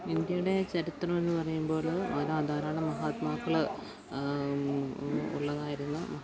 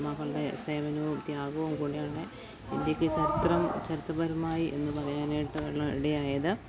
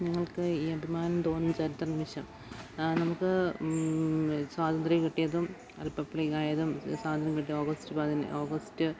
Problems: background sounds at intervals, low volume